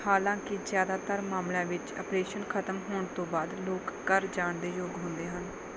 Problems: constant background noise